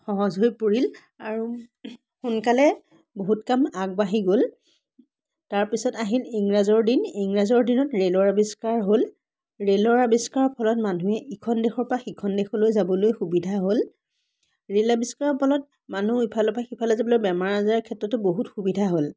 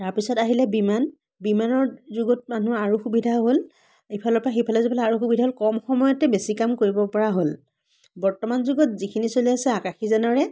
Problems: background sounds at intervals, background conversations at intervals